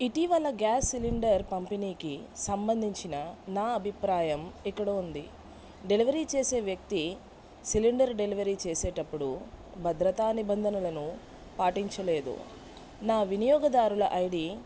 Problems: none marked